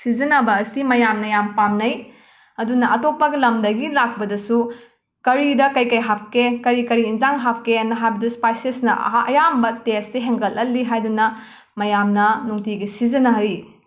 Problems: none marked